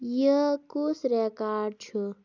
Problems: none marked